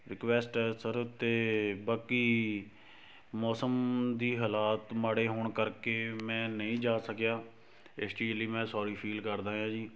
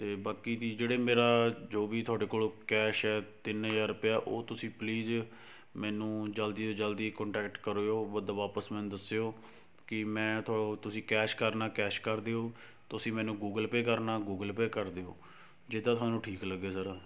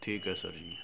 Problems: none marked